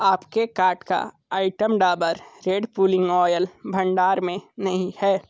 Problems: background sounds at intervals